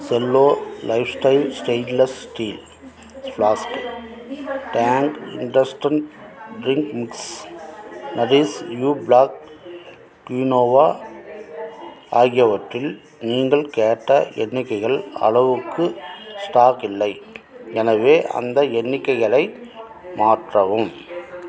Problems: continuous background conversations